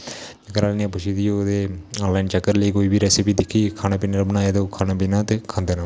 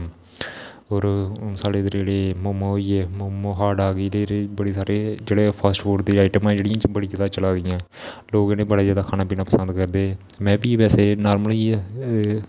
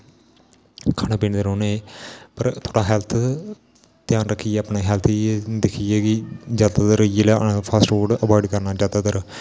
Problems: constant background noise